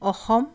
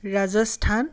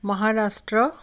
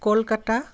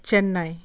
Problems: none marked